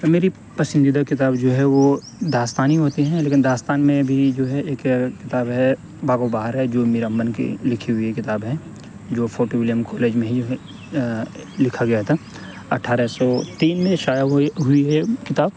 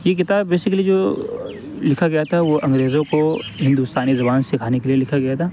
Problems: constant background noise, background conversations at intervals